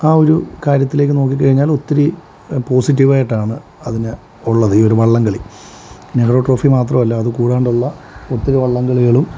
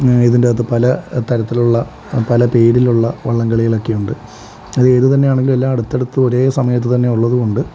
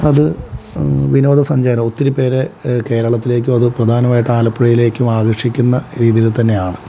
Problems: none marked